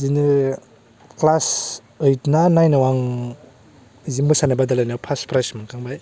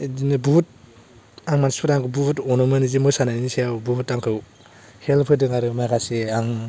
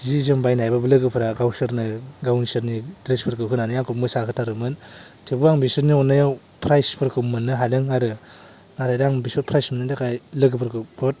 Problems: low volume